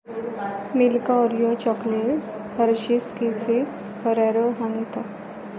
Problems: continuous background conversations